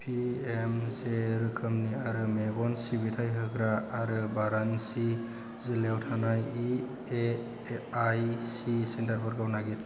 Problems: constant background noise